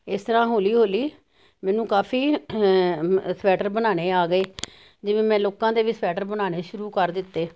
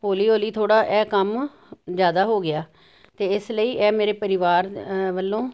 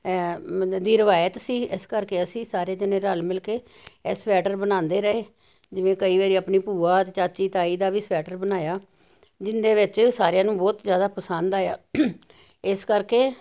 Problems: none marked